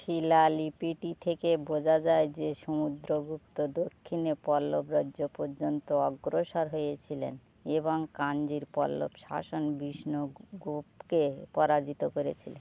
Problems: constant background noise